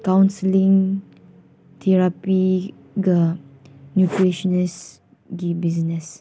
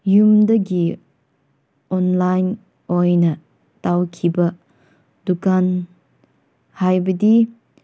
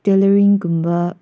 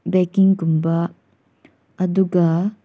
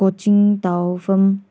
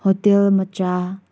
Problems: background sounds at intervals